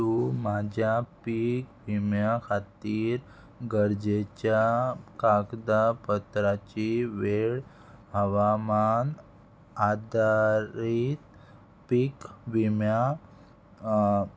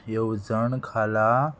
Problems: constant background noise